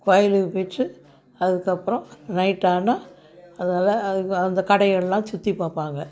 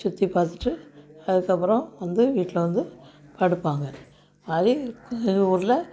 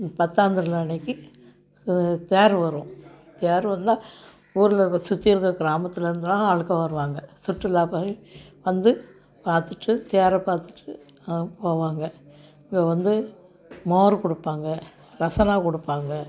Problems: background sounds at intervals